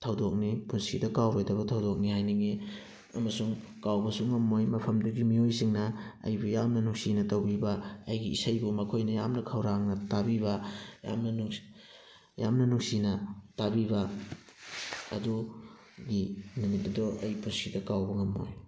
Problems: background sounds at intervals